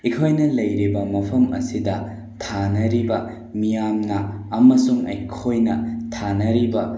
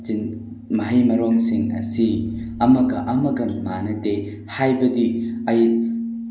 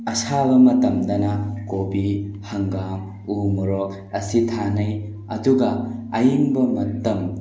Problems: background sounds at intervals